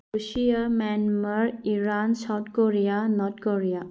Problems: low volume